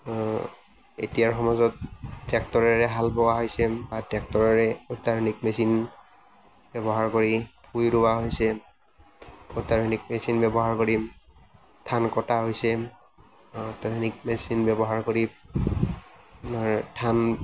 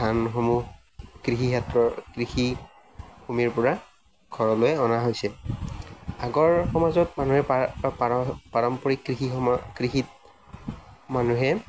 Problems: none marked